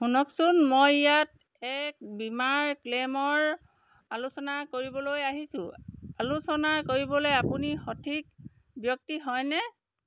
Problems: constant background noise